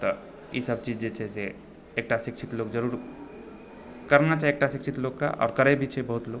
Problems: none marked